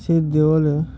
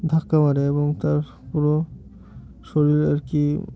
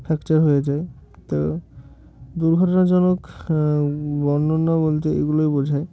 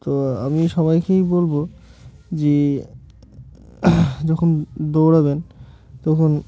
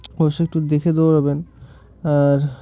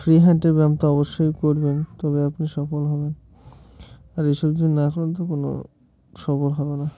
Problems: none marked